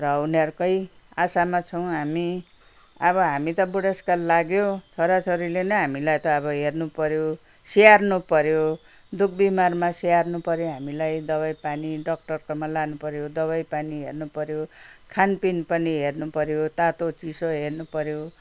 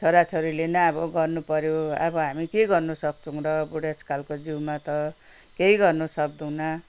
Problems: none marked